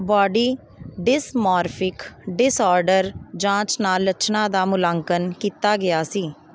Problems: none marked